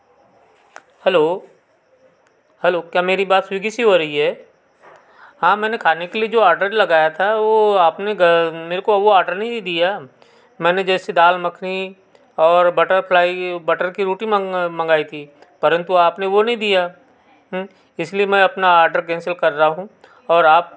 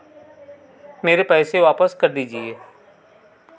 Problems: background sounds at intervals